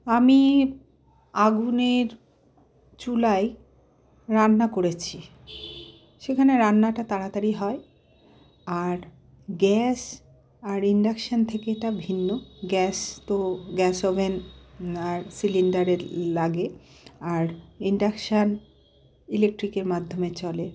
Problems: background sounds at intervals